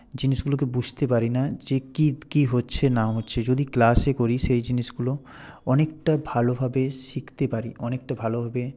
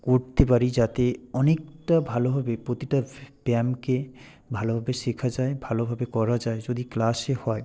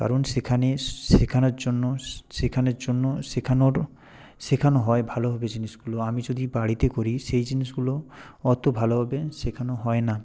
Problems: none marked